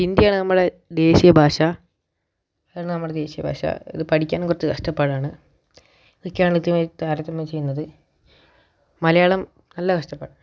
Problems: none marked